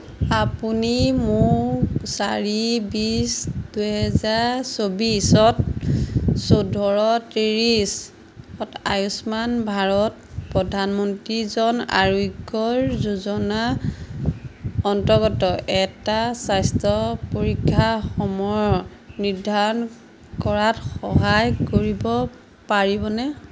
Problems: none marked